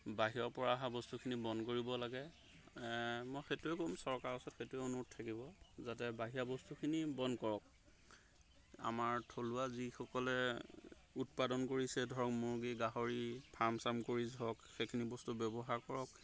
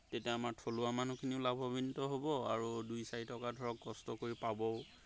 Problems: background sounds at intervals